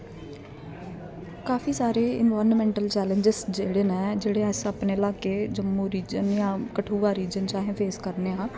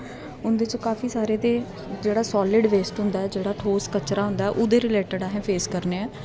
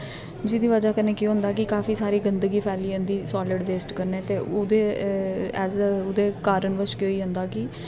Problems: constant background noise